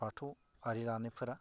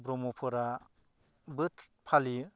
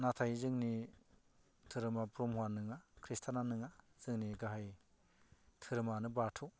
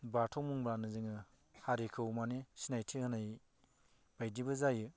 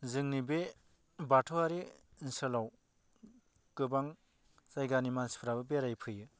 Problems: none marked